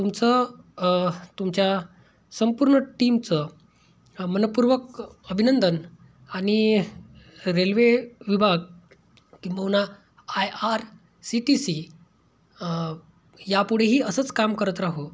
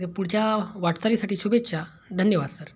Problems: background sounds at intervals